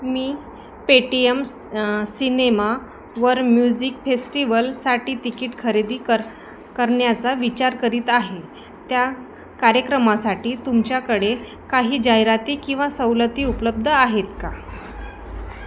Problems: constant background noise, continuous background conversations